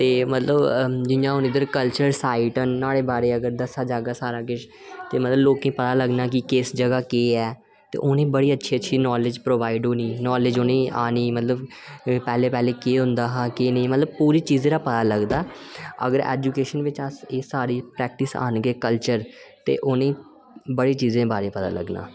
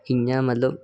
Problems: none marked